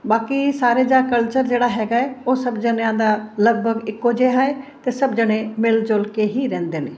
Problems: background sounds at intervals